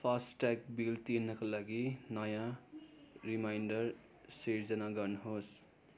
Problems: constant background noise